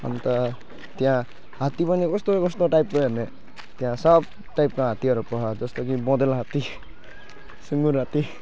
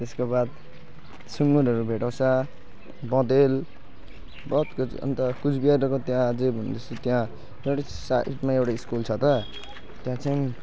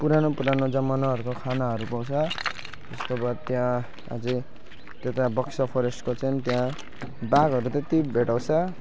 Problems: constant background noise, continuous background conversations